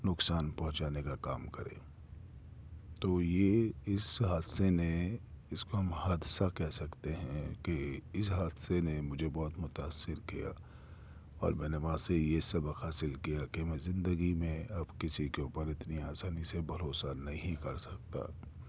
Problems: none marked